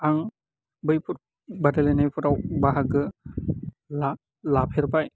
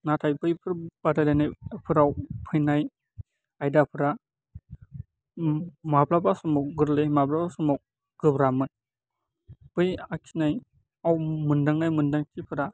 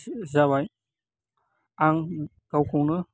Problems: none marked